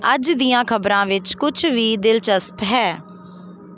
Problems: constant background noise